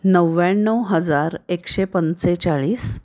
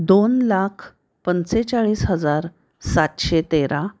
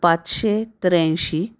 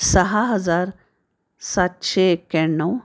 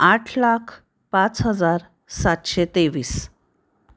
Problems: none marked